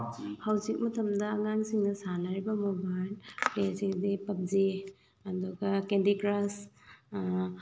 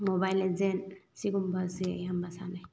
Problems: none marked